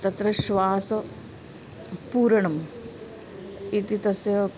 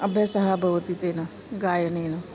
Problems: background sounds at intervals